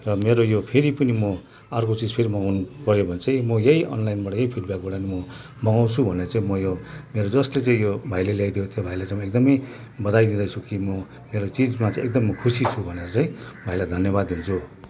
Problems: constant background noise, background conversations at intervals